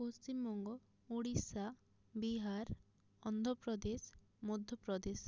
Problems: low volume